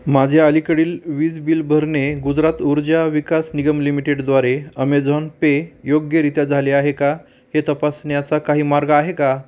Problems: none marked